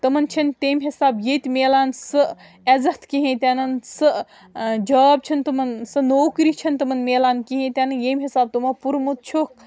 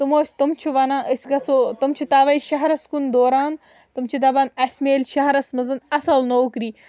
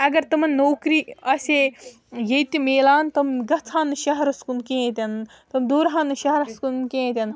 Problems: background sounds at intervals